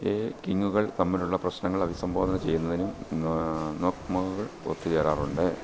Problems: constant background noise